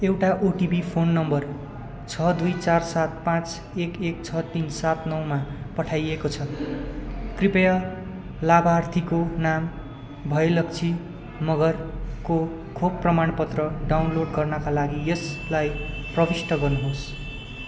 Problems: constant background noise